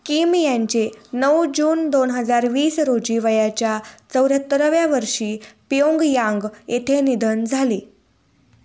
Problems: low volume